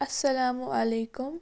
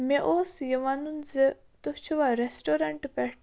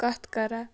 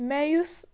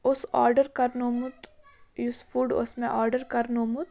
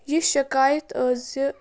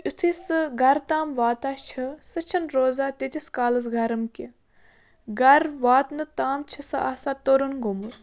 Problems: constant background noise